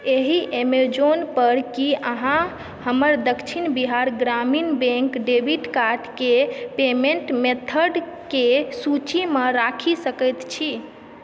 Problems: background sounds at intervals